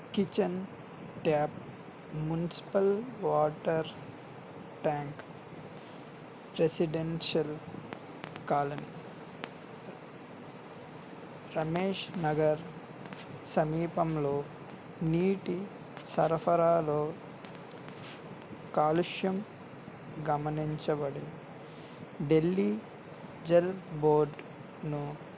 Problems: constant background noise